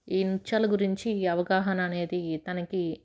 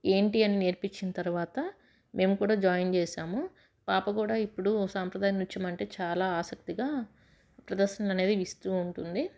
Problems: none marked